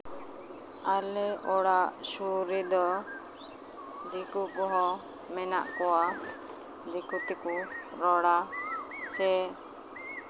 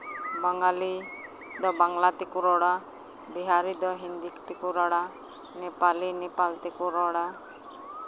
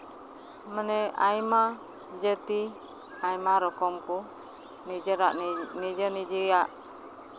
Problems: constant background noise